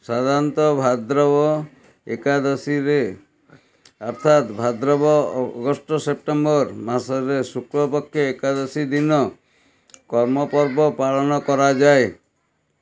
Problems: continuous background conversations